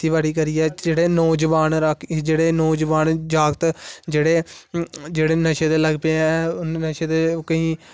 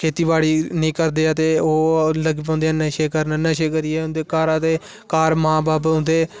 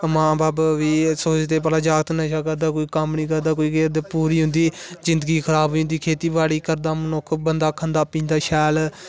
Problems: none marked